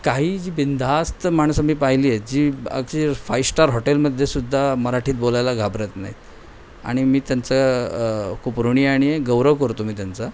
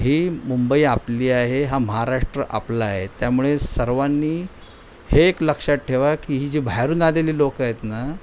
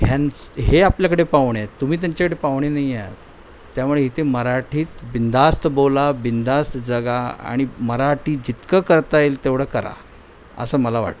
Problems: none marked